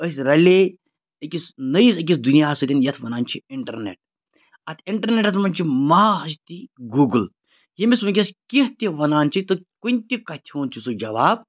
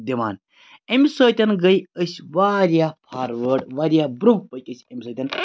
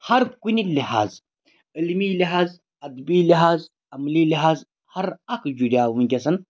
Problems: none marked